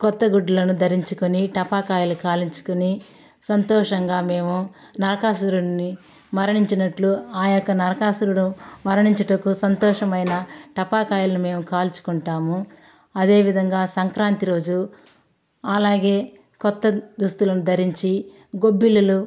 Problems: constant background noise, background conversations at intervals